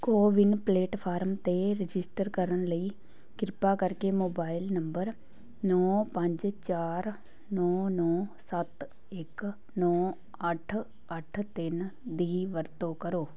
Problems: background conversations at intervals